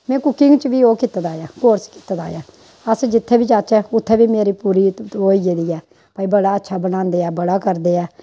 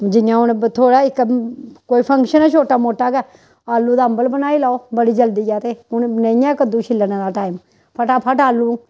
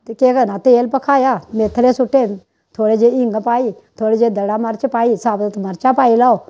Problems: constant background noise